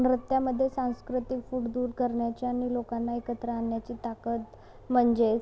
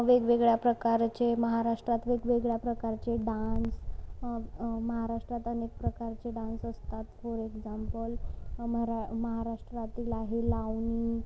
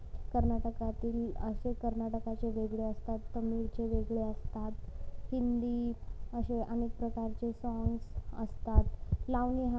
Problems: background sounds at intervals, low volume